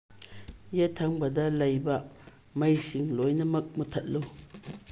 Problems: low volume